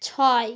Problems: constant background noise